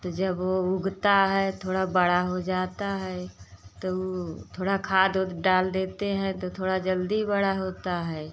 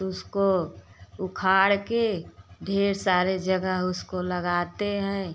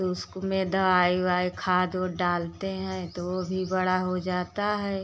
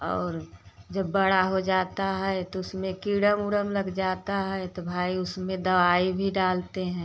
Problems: constant background noise